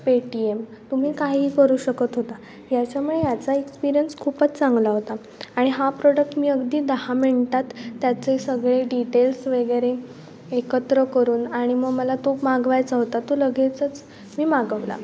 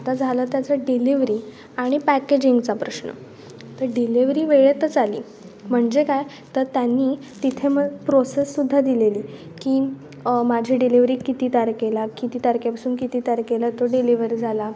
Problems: constant background noise